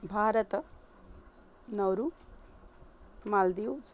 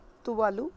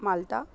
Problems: none marked